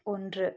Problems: low volume